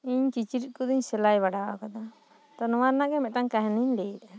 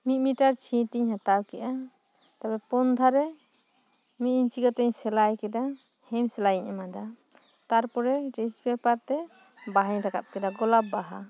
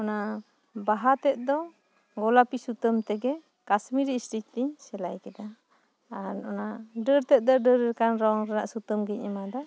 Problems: background sounds at intervals